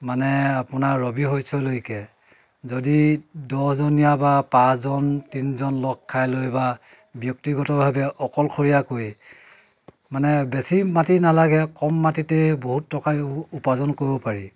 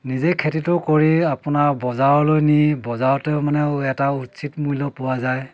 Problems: none marked